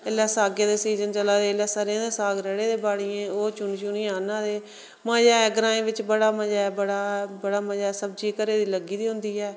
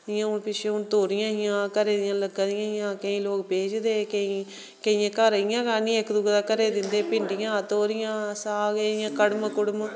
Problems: none marked